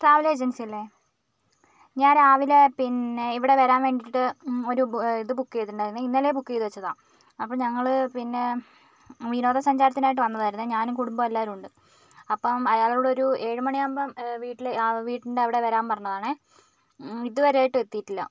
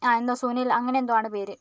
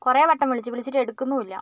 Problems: none marked